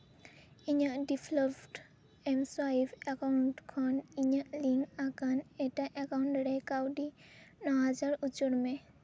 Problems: background sounds at intervals, low volume